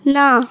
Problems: background sounds at intervals